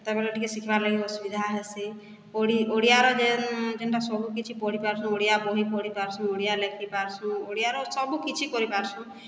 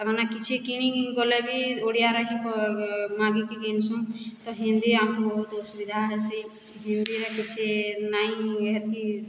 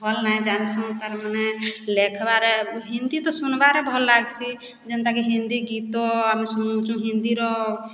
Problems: background sounds at intervals